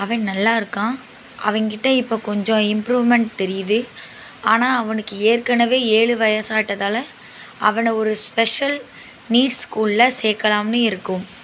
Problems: constant background noise